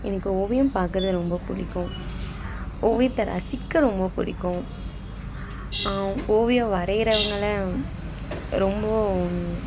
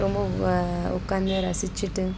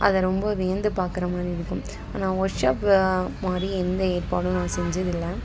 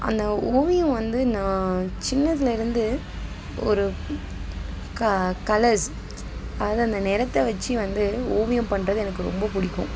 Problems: constant background noise, background conversations at intervals